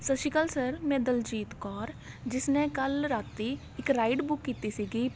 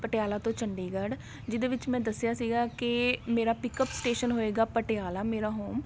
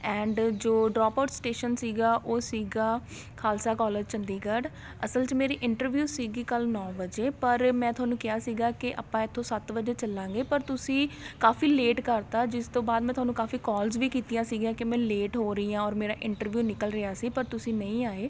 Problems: none marked